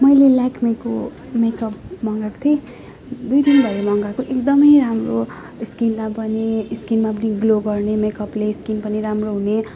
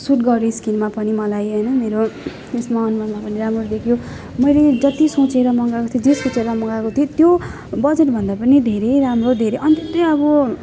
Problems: constant background noise, continuous background conversations